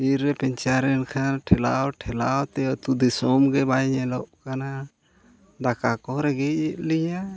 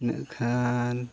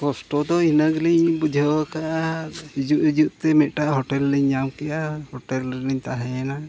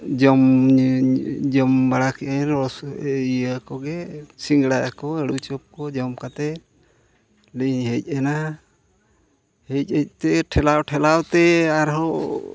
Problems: none marked